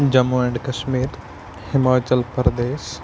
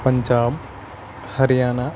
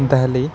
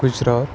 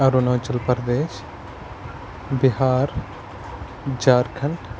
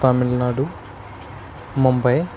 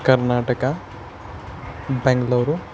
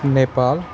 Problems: constant background noise